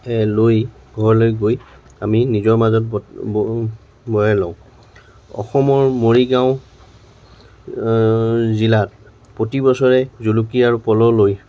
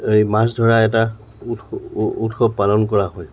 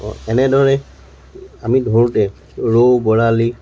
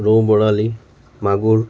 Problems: none marked